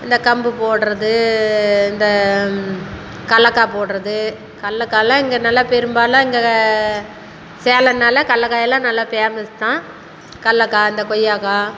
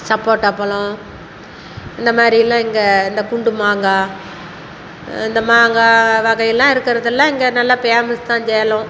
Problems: constant background noise